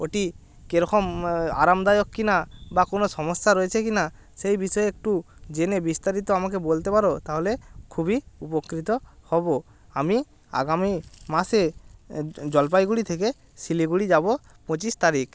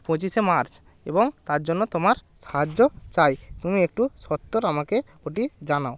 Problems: none marked